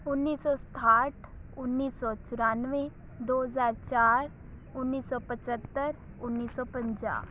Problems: background sounds at intervals